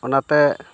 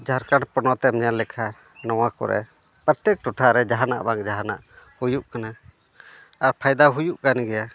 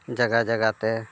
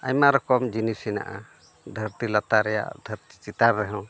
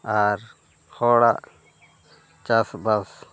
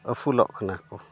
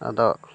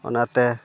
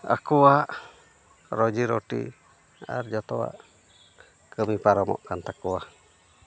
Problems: background sounds at intervals